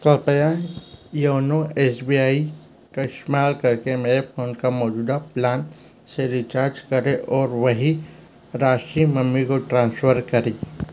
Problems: none marked